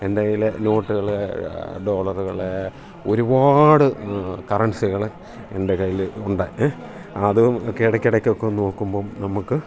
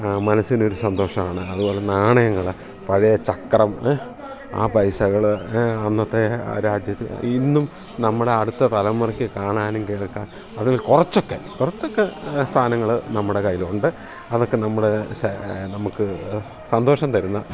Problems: none marked